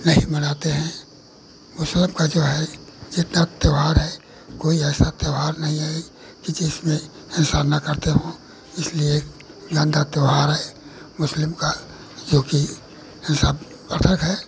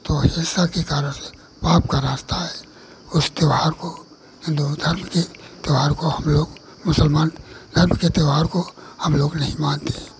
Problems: none marked